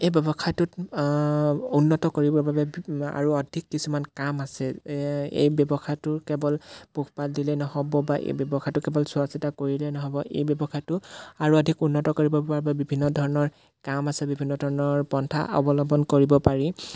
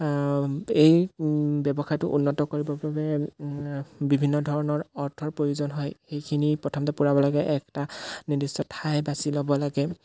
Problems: background sounds at intervals